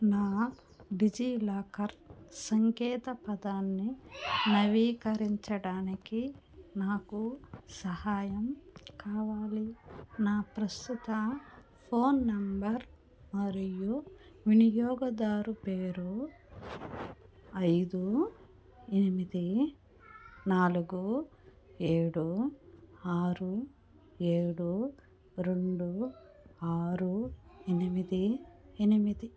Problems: background sounds at intervals, background conversations at intervals